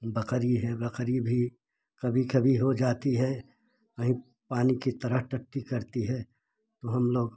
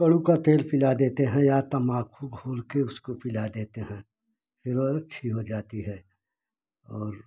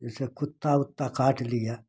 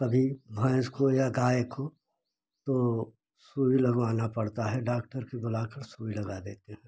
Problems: none marked